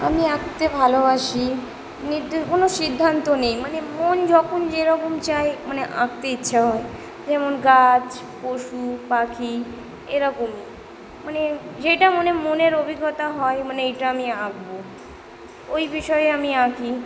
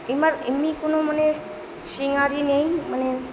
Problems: background conversations at intervals